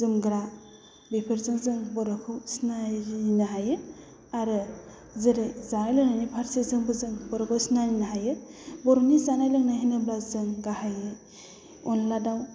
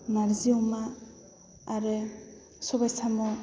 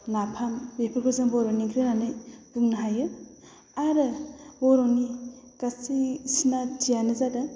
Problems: low volume